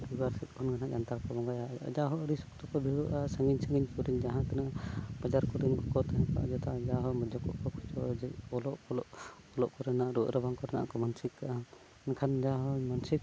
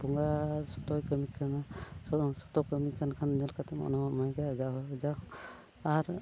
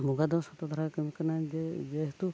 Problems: none marked